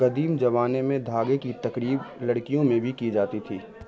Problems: constant background noise